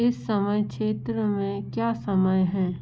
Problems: constant background noise